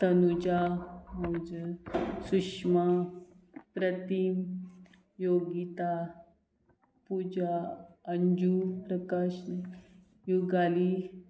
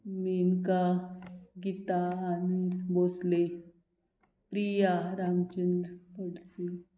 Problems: none marked